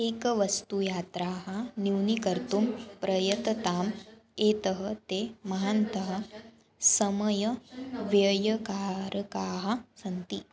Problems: background conversations at intervals